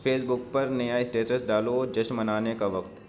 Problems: none marked